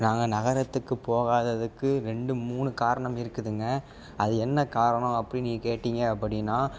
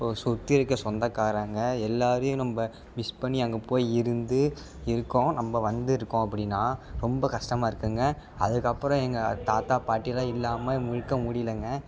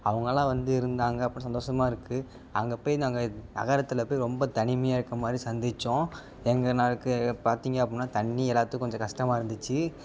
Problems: background sounds at intervals